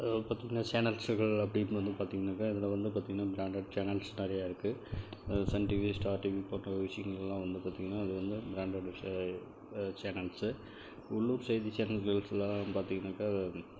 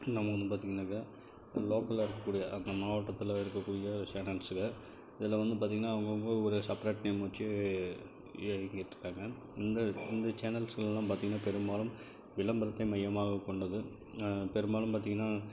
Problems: constant background noise, low volume